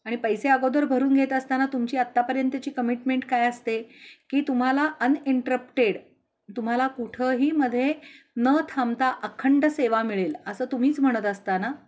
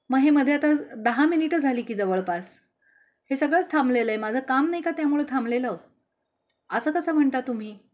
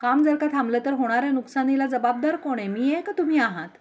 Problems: constant background noise